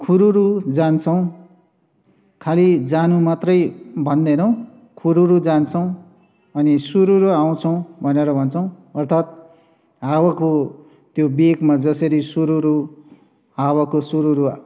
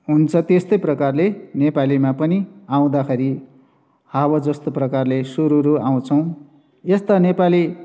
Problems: none marked